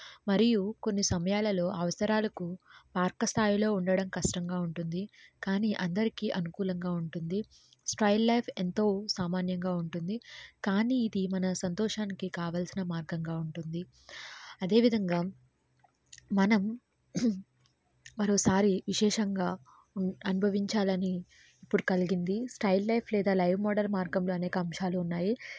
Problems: none marked